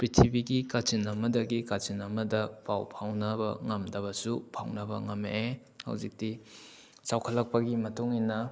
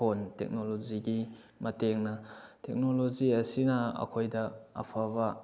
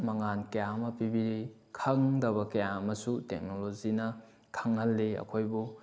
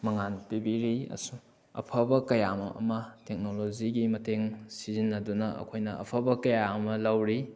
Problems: background sounds at intervals